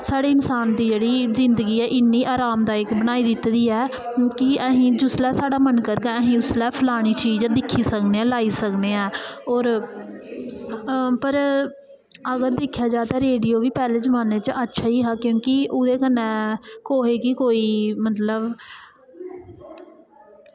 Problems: echo